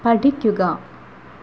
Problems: constant background noise